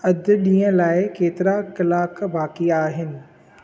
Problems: echo